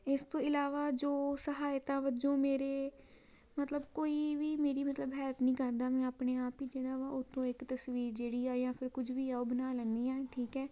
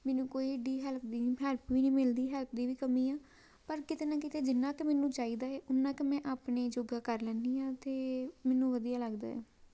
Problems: background sounds at intervals